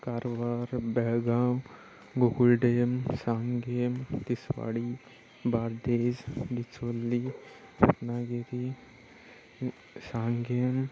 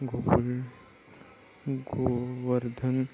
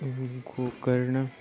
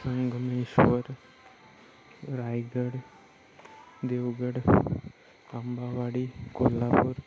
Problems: constant background noise